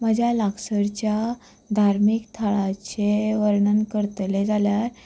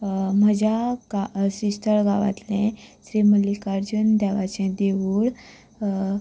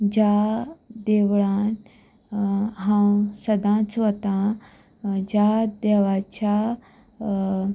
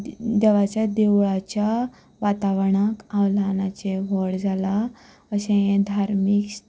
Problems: none marked